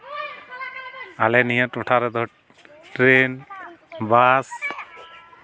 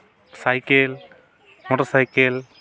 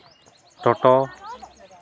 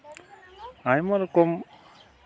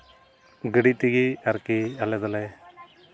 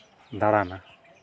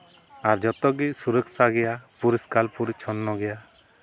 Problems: background sounds at intervals, continuous background conversations